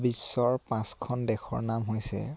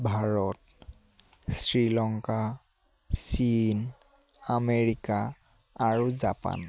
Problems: constant background noise